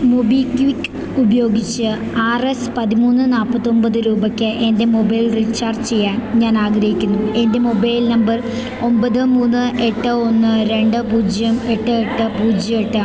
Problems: constant background noise